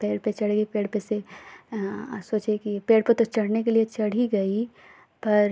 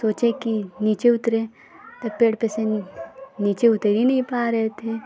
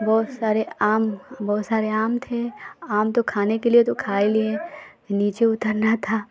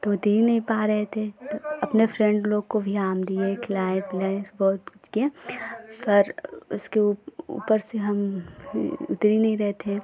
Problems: none marked